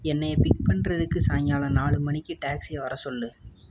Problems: constant background noise